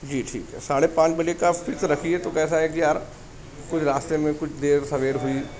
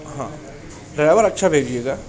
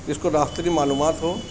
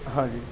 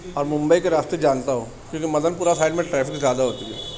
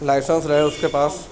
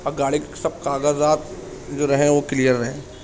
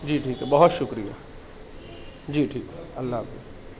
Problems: constant background noise, background conversations at intervals